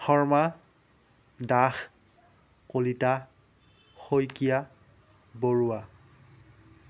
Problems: none marked